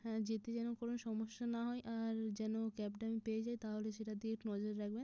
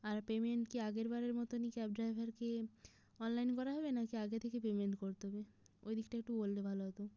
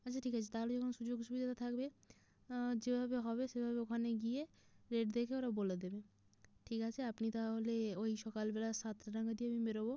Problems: none marked